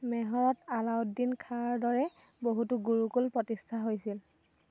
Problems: constant background noise